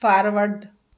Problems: none marked